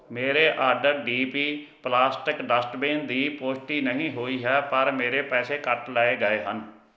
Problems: none marked